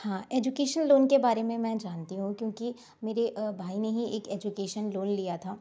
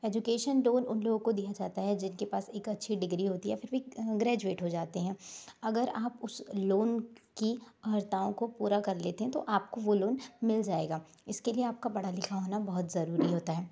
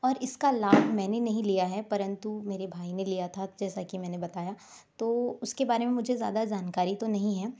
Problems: background sounds at intervals